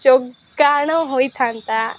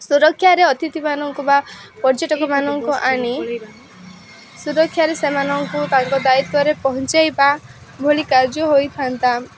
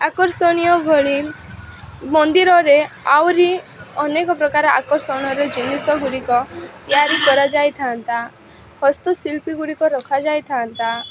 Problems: constant background noise